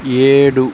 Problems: constant background noise